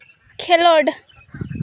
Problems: none marked